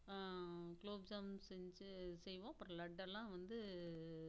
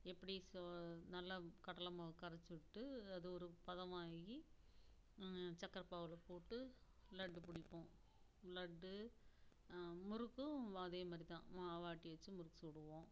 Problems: background sounds at intervals, low volume